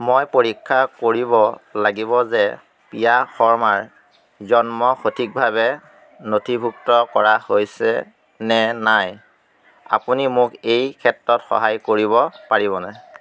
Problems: constant background noise